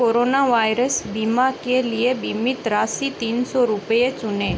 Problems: none marked